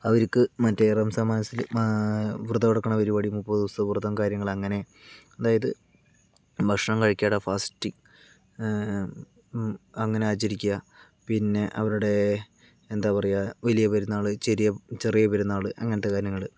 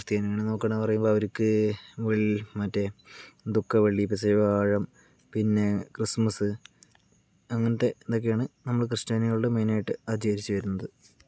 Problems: low volume